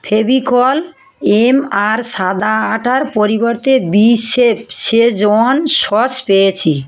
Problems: continuous background conversations